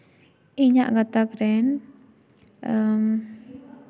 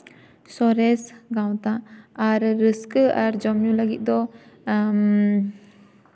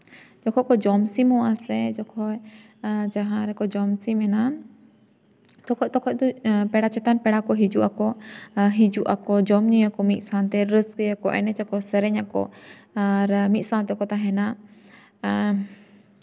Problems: constant background noise